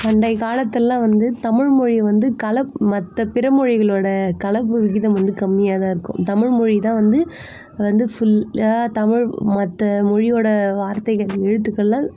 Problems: constant background noise